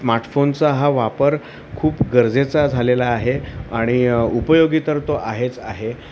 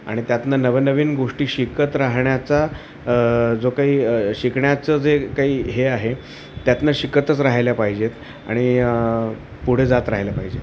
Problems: constant background noise